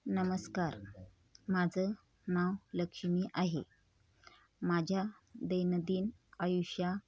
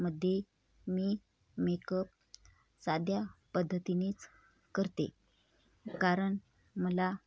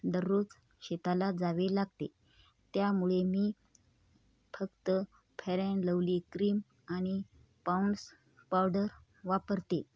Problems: none marked